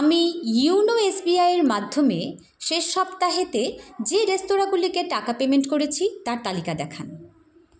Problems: constant background noise, background conversations at intervals